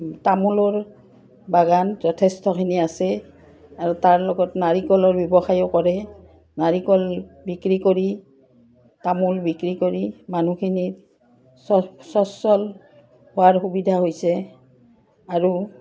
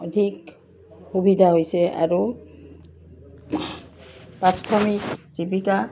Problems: background sounds at intervals